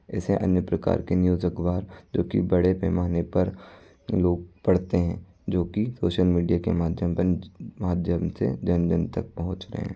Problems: background sounds at intervals